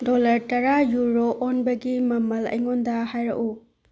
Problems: low volume